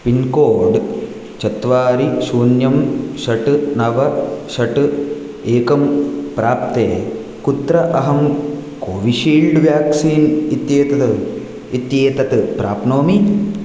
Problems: none marked